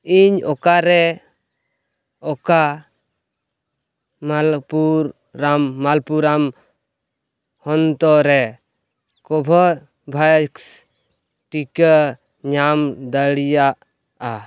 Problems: background sounds at intervals